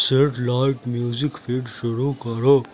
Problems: none marked